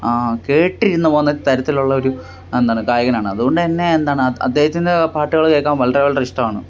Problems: constant background noise